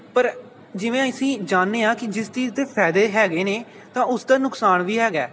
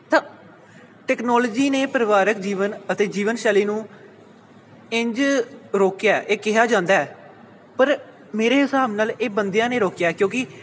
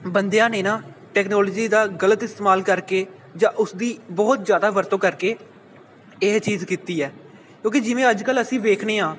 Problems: none marked